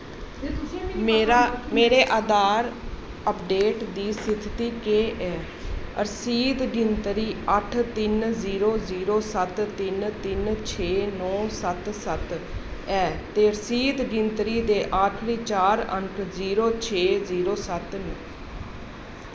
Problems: constant background noise